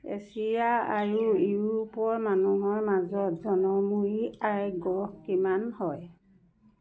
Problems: background sounds at intervals